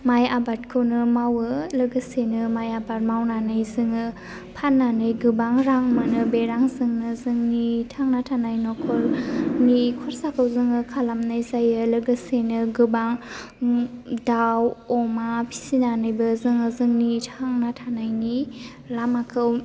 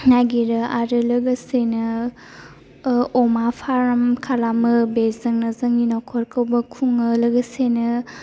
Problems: low volume